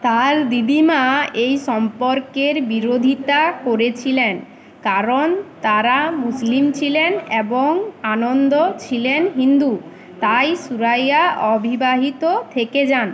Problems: constant background noise